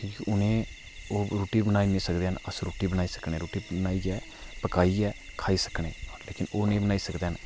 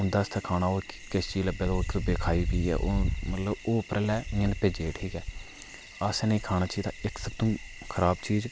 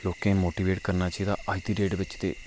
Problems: none marked